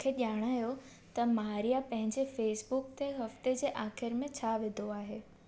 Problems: constant background noise